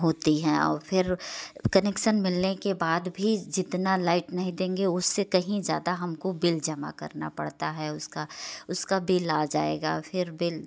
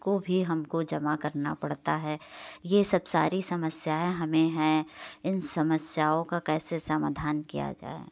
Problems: constant background noise